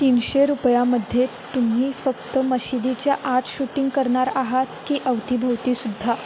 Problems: constant background noise